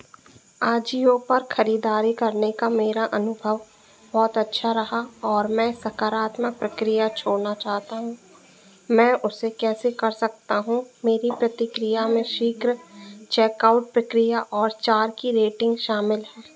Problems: constant background noise